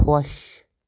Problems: none marked